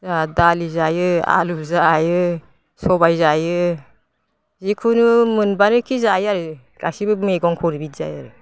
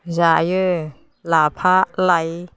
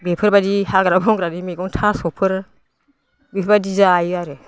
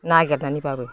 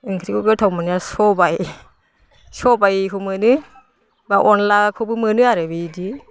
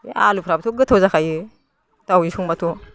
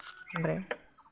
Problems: constant background noise